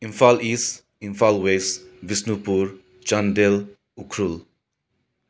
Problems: background sounds at intervals